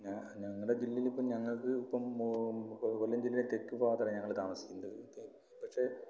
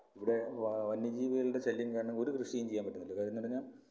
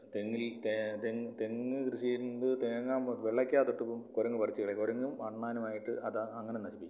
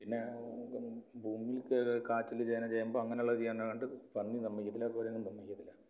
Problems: low volume